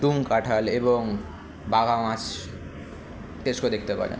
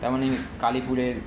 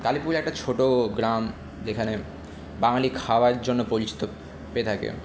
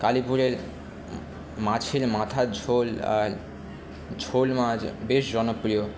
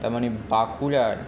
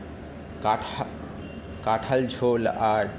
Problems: constant background noise, continuous background conversations